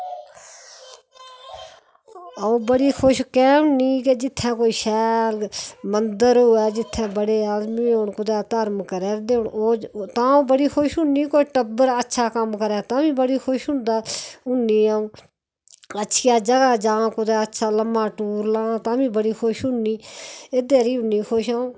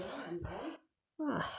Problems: constant background noise